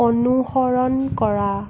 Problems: constant background noise